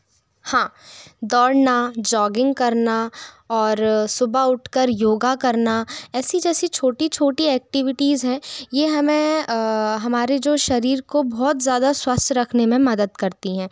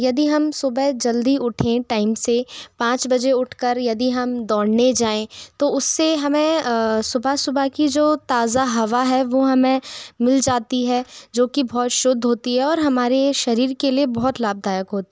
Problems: constant background noise